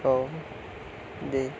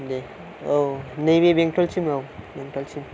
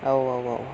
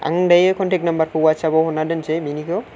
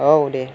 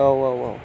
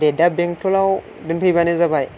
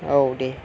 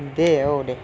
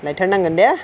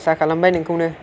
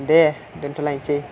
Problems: low volume